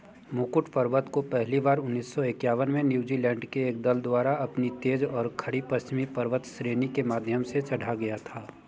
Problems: background sounds at intervals